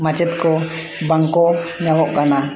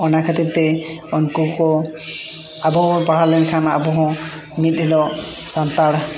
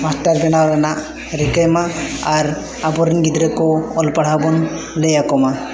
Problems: constant background noise, echo